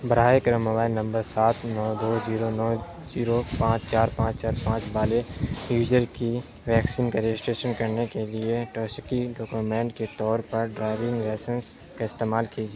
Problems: constant background noise